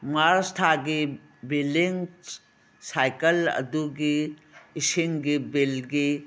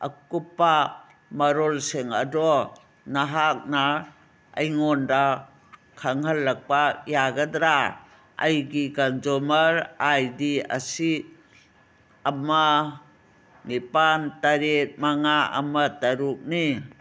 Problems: background sounds at intervals